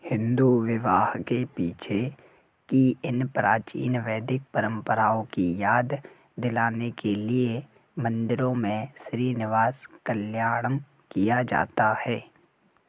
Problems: none marked